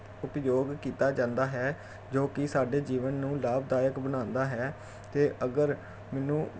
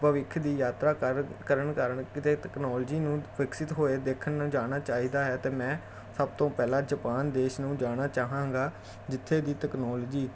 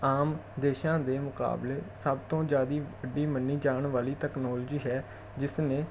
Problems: none marked